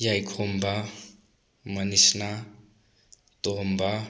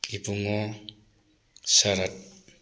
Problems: none marked